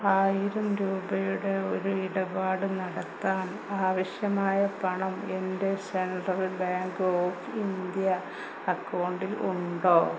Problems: constant background noise, low volume